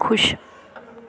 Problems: continuous background conversations